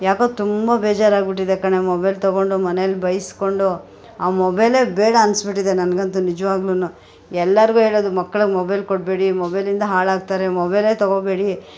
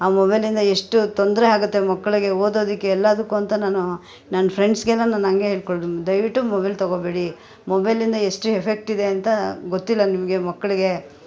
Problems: background conversations at intervals